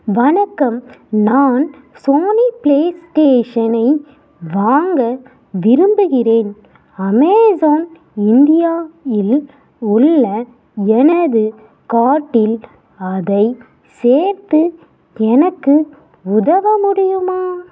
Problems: background sounds at intervals